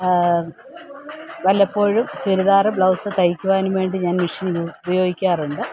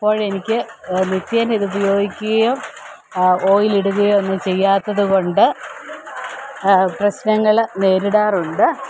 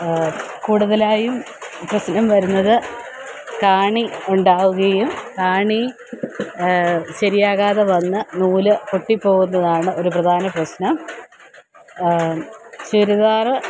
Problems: constant background noise